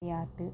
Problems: low volume